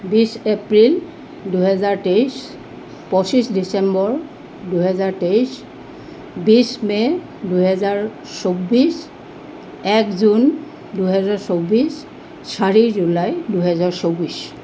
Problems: background sounds at intervals